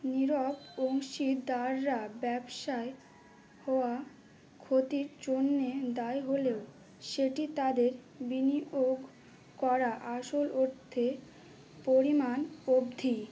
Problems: constant background noise, low volume